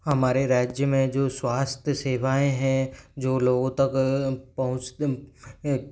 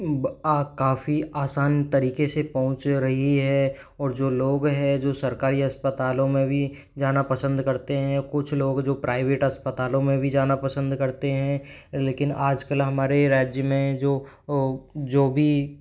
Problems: background sounds at intervals